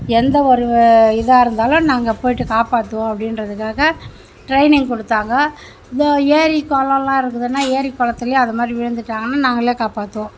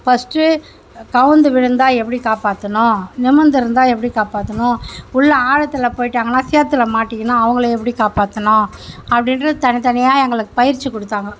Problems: constant background noise